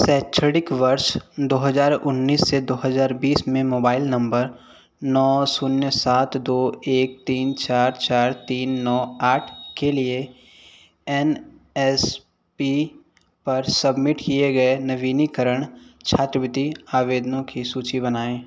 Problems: none marked